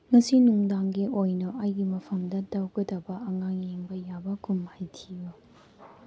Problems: background sounds at intervals